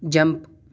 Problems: none marked